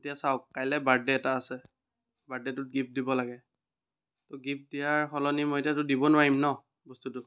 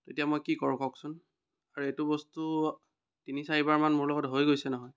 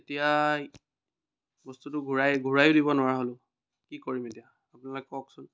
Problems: none marked